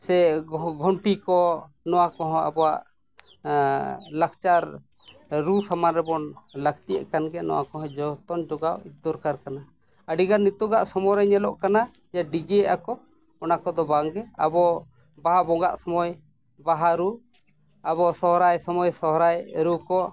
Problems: background sounds at intervals